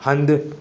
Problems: constant background noise